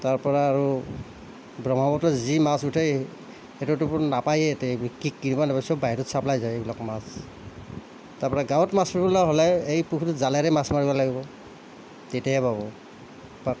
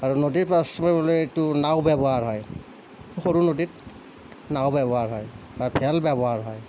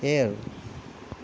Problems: none marked